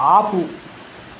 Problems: constant background noise